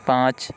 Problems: none marked